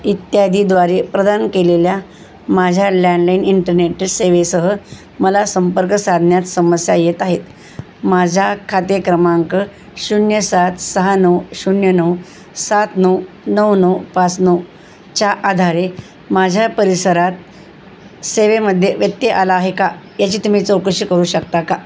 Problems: none marked